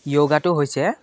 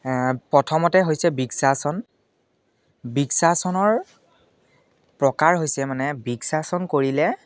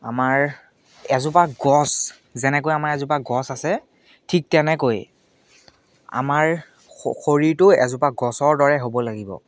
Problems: none marked